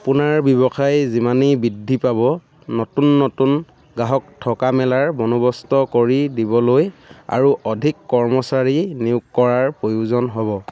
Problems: background sounds at intervals, background conversations at intervals